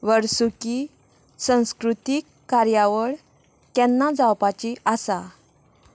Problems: constant background noise